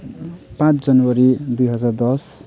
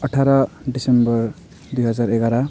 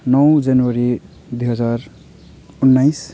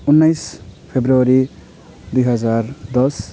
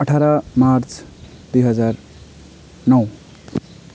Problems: none marked